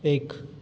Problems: constant background noise, echo